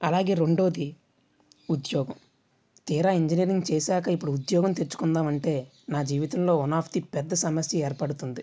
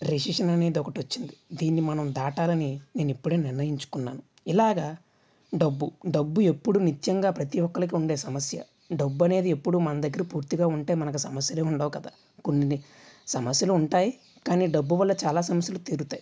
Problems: none marked